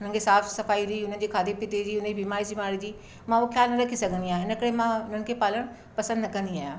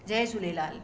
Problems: none marked